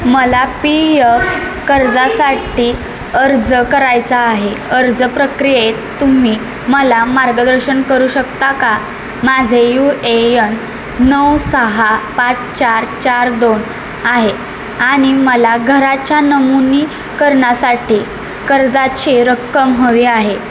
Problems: constant background noise, background conversations at intervals